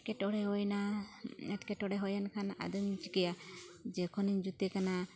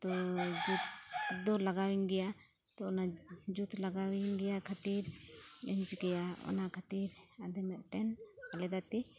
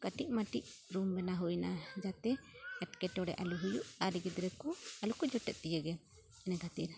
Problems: constant background noise, continuous background conversations